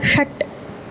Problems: constant background noise